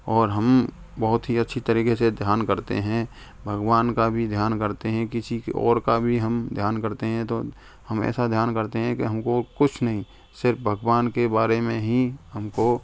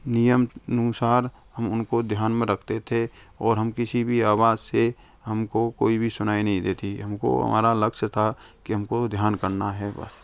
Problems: constant background noise